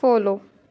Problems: constant background noise